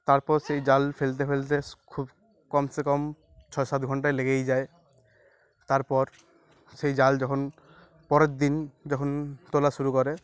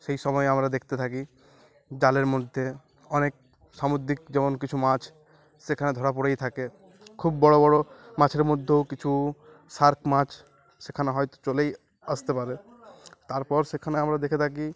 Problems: none marked